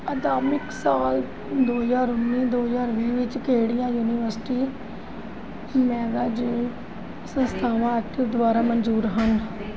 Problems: background sounds at intervals